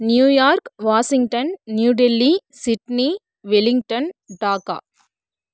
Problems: none marked